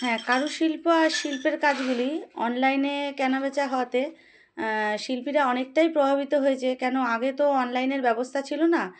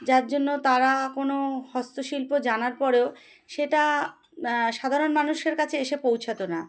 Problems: background sounds at intervals